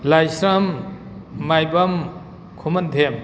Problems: background sounds at intervals